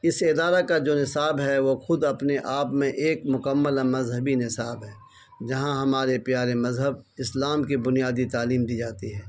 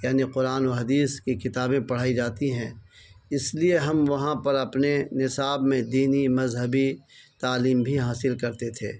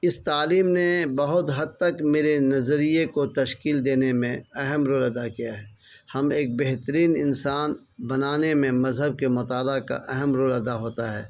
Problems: constant background noise